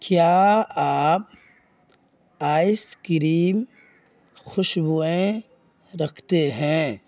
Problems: none marked